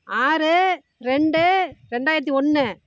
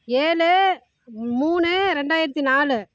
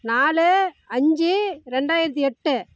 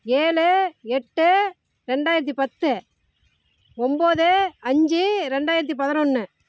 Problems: none marked